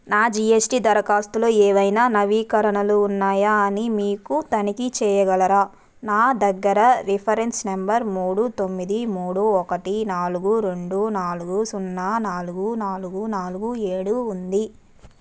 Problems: none marked